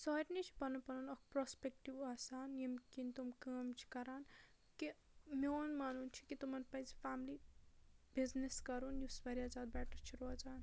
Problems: low volume